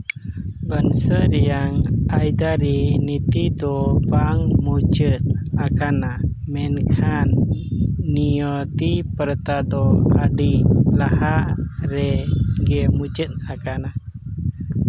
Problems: constant background noise